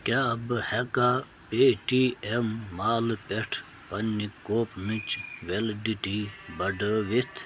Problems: constant background noise